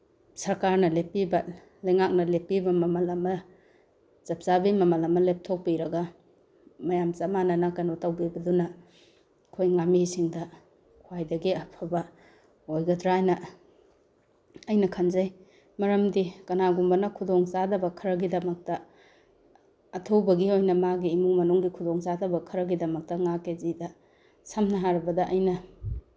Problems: none marked